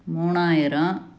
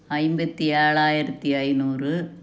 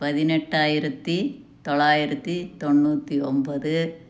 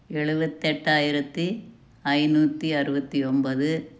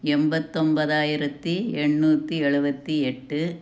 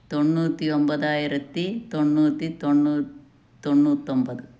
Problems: none marked